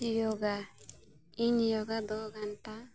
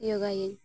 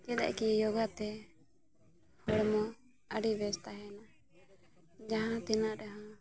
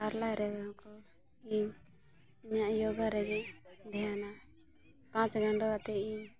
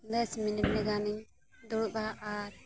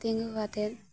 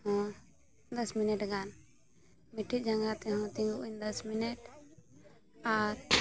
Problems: background sounds at intervals, continuous background conversations, low volume